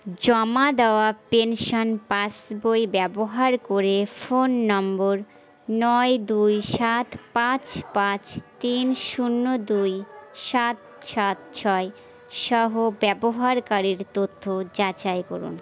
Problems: none marked